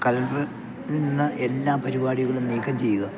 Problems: none marked